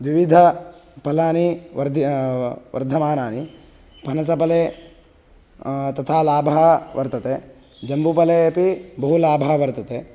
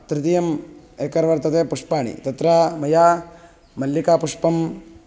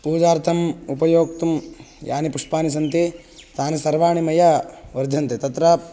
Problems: background sounds at intervals